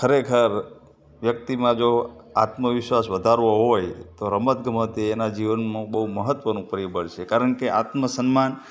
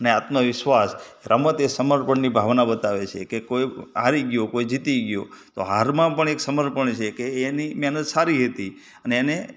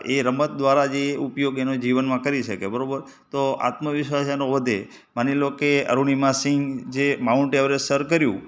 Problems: background sounds at intervals